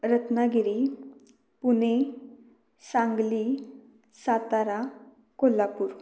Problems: none marked